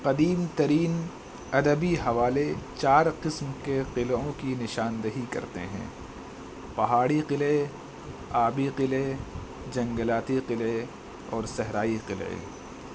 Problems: constant background noise